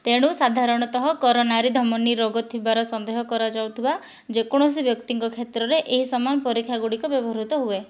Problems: none marked